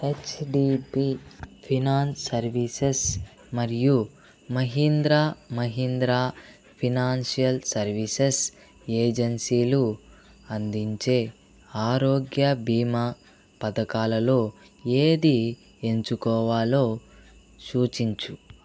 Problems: none marked